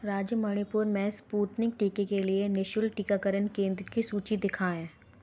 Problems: background sounds at intervals